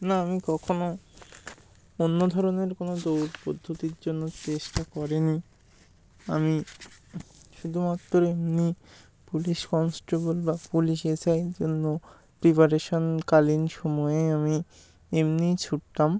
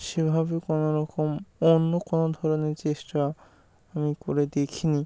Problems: constant background noise